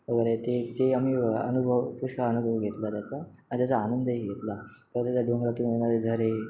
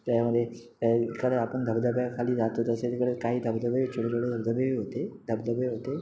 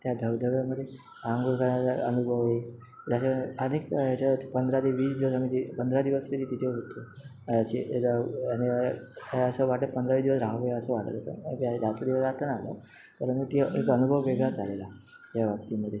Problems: none marked